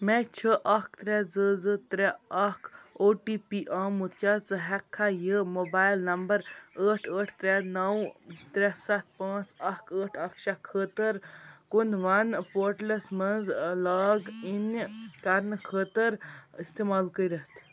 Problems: constant background noise